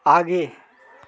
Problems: constant background noise, continuous background conversations